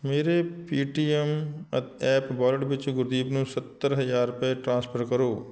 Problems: background sounds at intervals